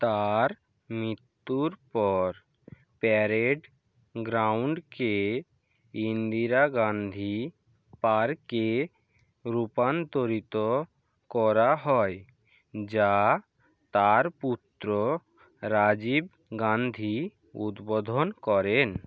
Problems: none marked